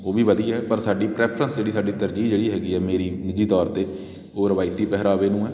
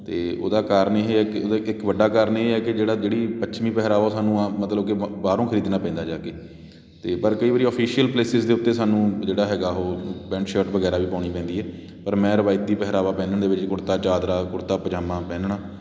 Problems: constant background noise